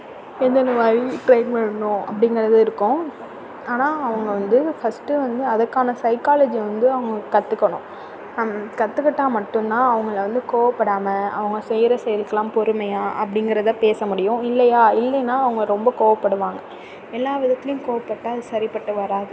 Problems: none marked